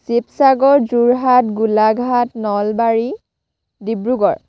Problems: none marked